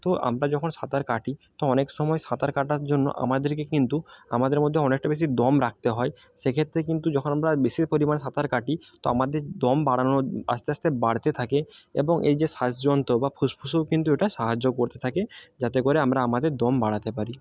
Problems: none marked